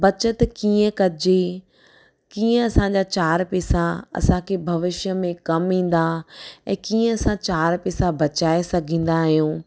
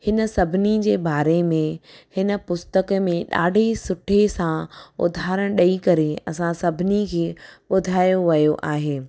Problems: none marked